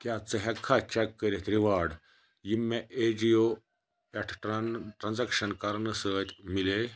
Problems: background sounds at intervals